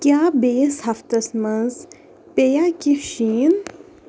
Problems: none marked